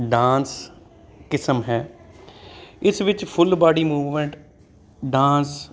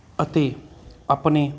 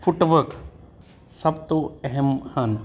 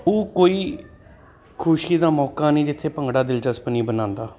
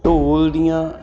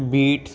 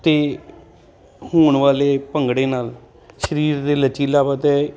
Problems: constant background noise